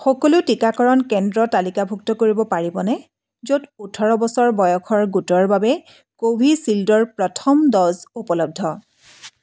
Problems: background sounds at intervals